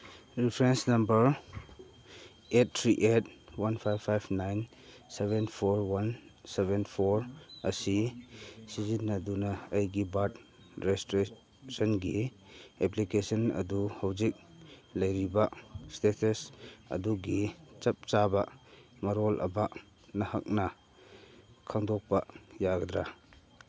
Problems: constant background noise